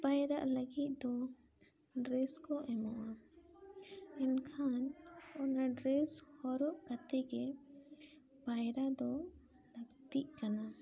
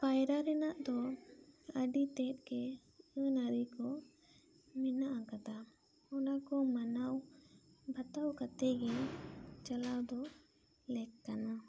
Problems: background conversations at intervals